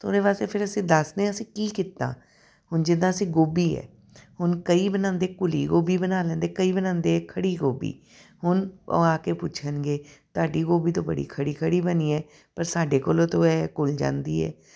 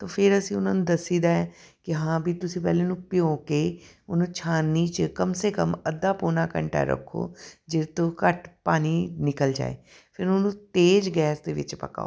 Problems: none marked